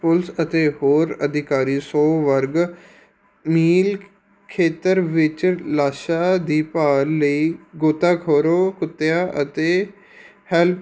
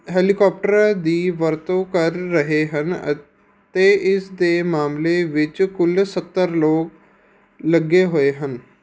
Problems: background sounds at intervals